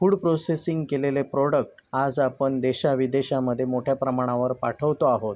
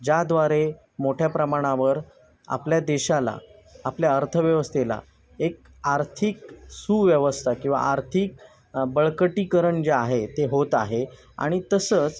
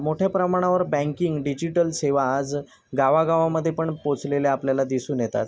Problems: constant background noise, background conversations at intervals